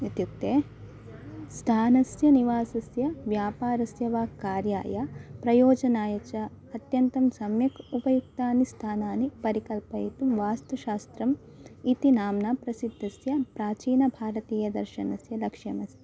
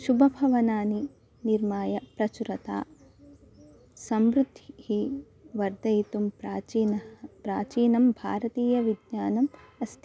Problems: constant background noise